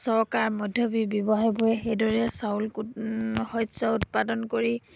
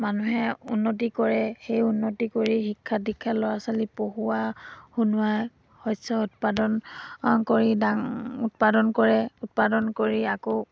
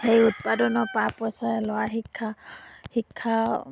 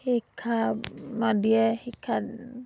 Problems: background sounds at intervals